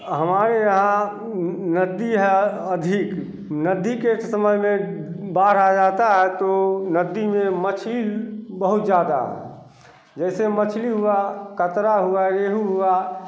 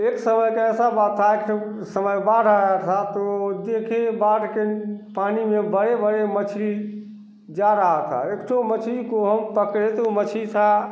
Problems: constant background noise